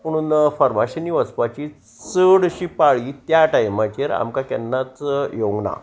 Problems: constant background noise